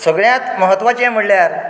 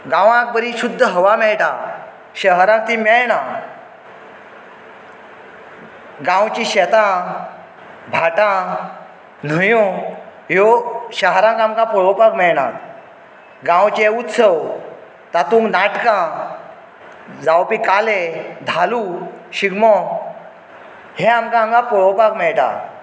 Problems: none marked